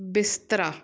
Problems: background sounds at intervals